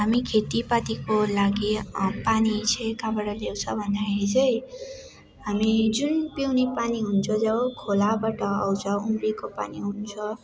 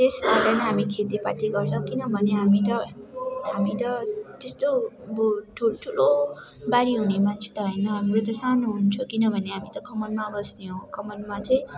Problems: constant background noise